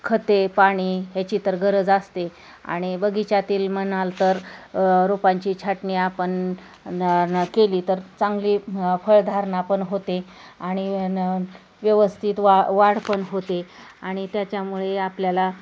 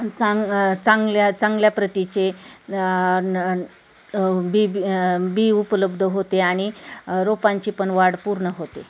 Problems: constant background noise, continuous background conversations